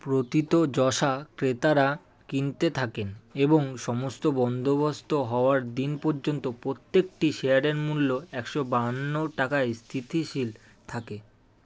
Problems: none marked